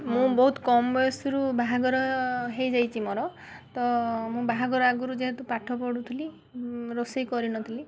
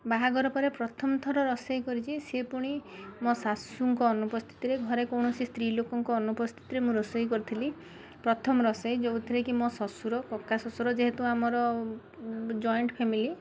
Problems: none marked